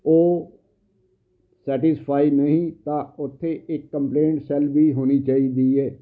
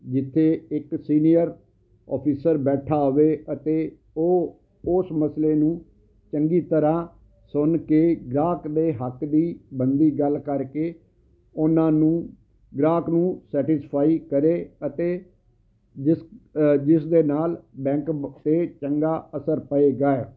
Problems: constant background noise